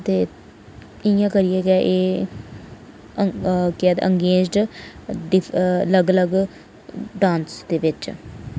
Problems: none marked